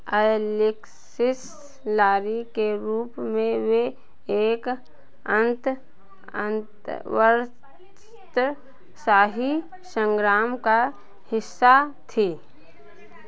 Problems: none marked